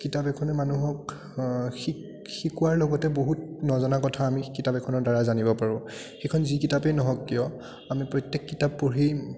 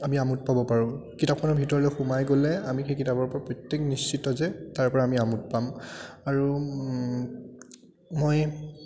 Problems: constant background noise, continuous background conversations